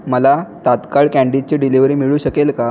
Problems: constant background noise